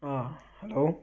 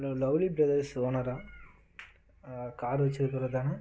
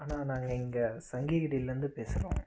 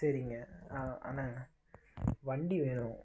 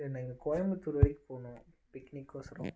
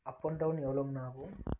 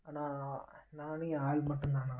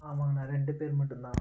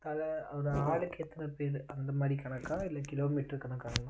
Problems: constant background noise